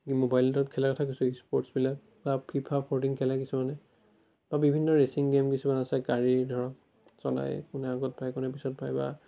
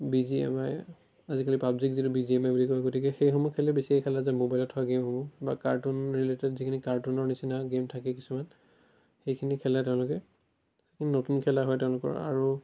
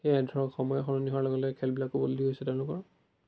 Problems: none marked